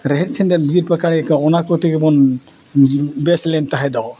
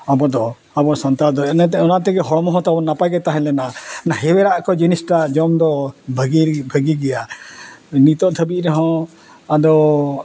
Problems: none marked